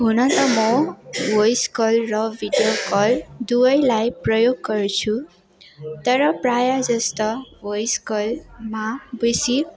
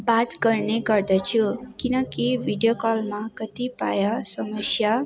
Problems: constant background noise